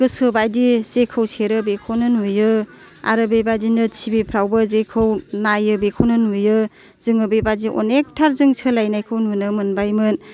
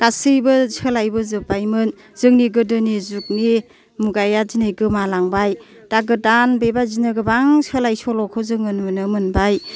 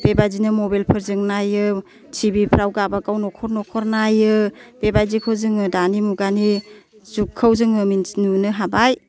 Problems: none marked